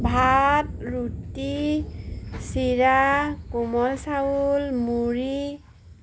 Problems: none marked